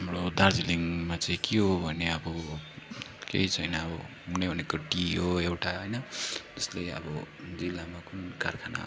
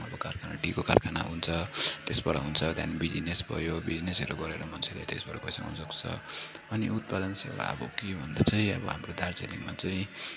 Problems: constant background noise, low volume